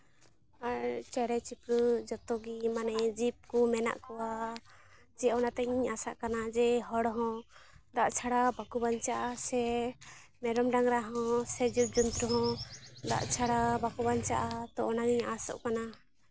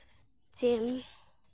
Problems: constant background noise, background conversations at intervals, low volume